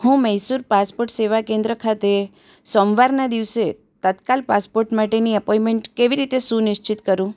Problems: none marked